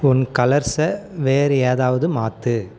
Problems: background conversations at intervals